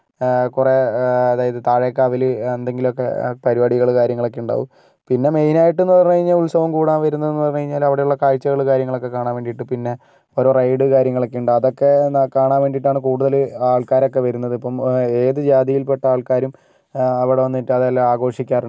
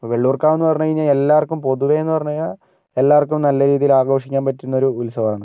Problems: none marked